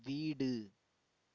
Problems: none marked